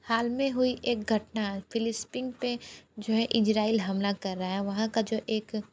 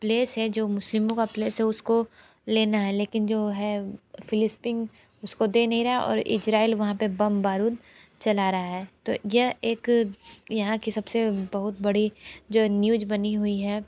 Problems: none marked